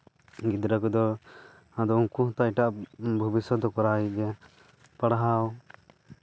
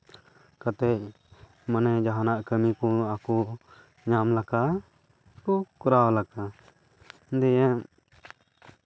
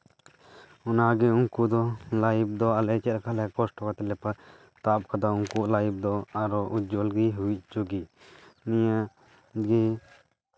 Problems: none marked